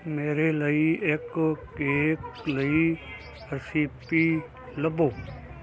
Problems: constant background noise